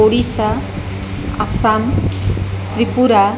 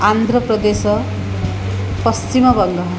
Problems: constant background noise